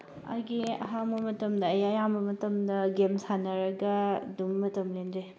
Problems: background conversations at intervals